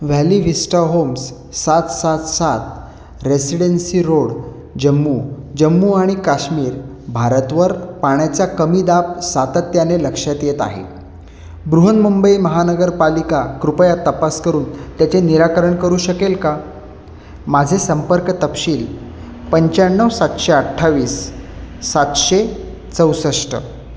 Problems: none marked